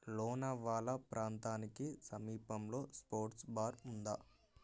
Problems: none marked